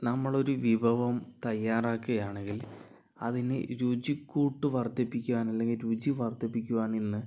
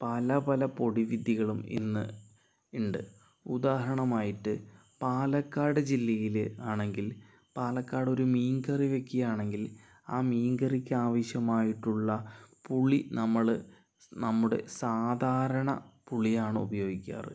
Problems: low volume